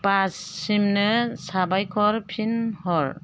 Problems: none marked